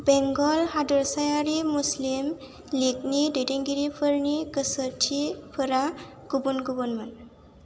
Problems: none marked